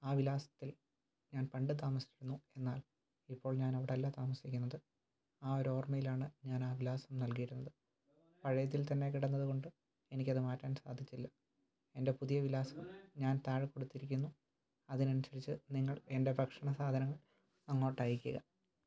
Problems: low volume